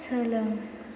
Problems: constant background noise